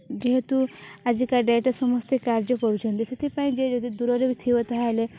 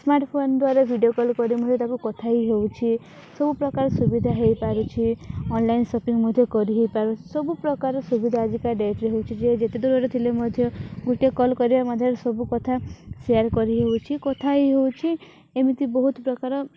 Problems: background sounds at intervals